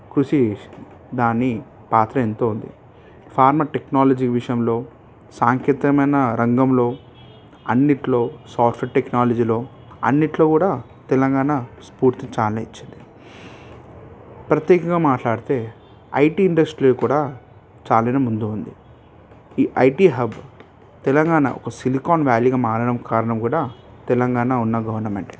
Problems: background sounds at intervals